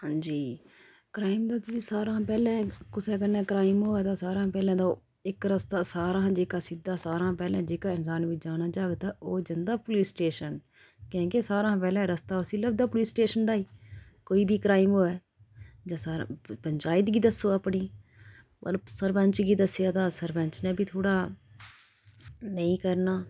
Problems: none marked